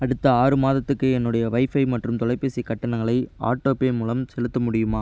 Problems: constant background noise